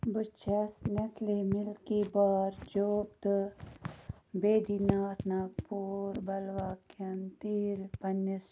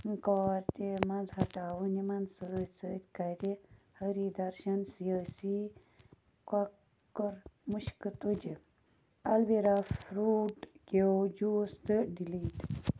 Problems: background sounds at intervals, low volume